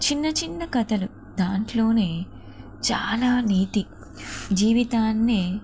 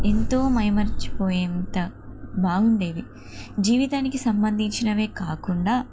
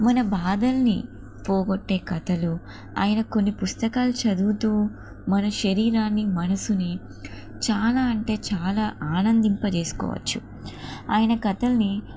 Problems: constant background noise